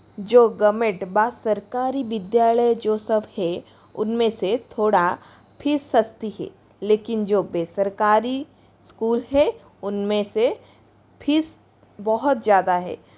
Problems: constant background noise